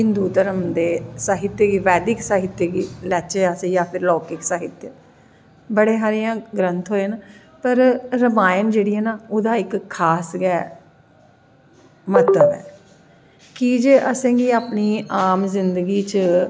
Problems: echo